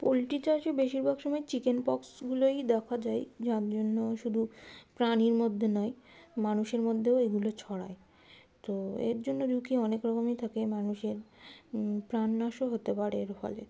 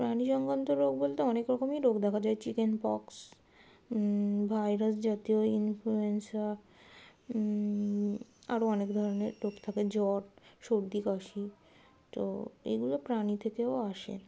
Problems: constant background noise